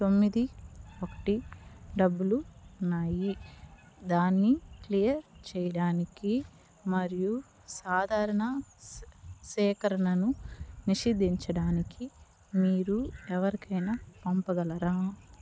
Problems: background sounds at intervals